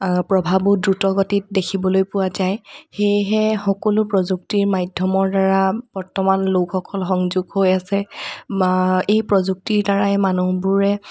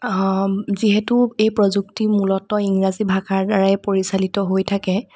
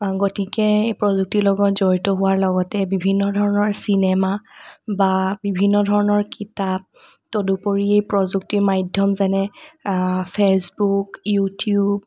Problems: none marked